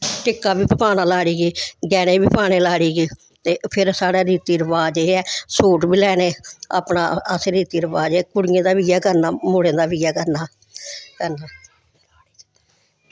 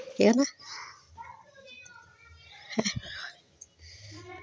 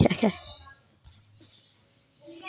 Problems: background sounds at intervals, background conversations at intervals